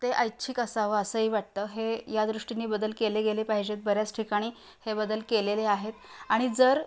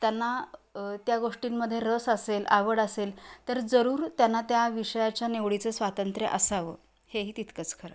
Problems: constant background noise